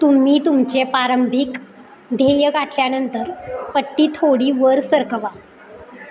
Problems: constant background noise, background conversations at intervals